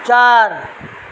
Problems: constant background noise